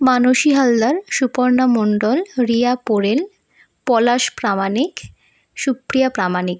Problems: none marked